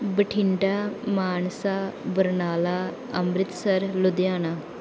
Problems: background sounds at intervals